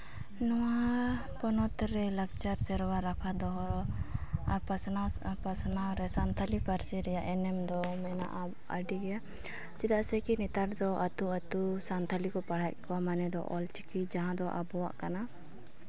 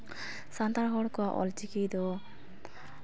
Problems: none marked